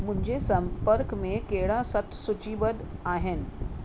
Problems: constant background noise